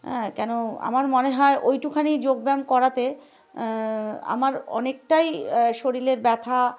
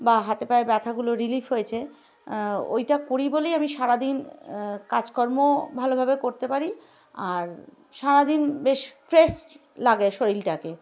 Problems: background sounds at intervals, background conversations at intervals